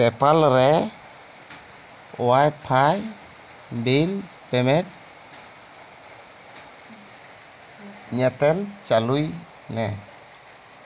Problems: constant background noise